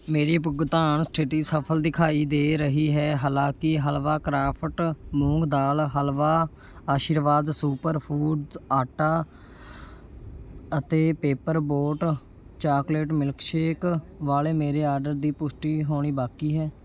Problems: background sounds at intervals